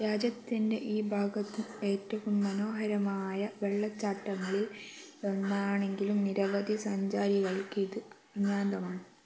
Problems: none marked